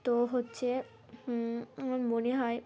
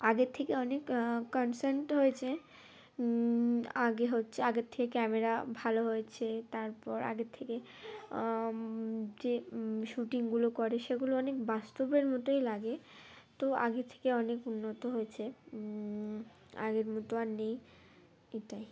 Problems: constant background noise